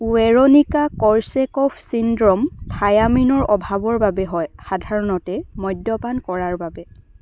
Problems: none marked